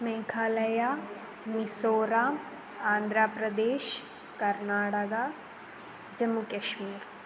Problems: constant background noise